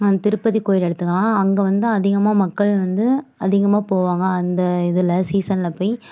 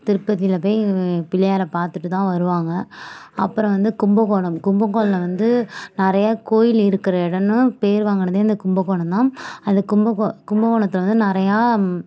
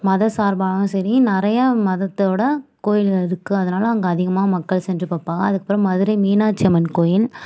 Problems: none marked